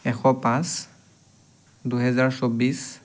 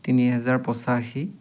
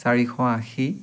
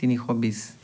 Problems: background sounds at intervals, background conversations at intervals